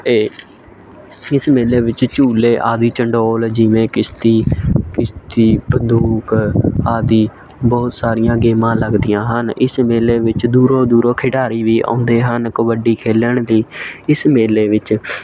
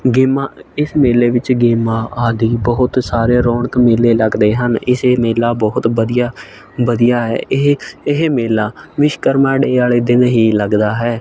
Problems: constant background noise